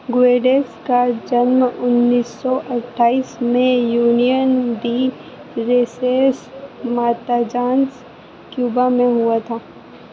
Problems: constant background noise